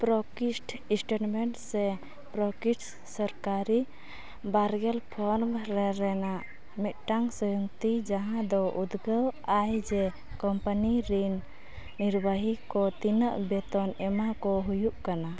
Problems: none marked